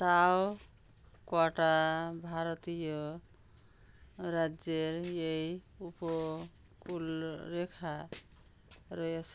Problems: constant background noise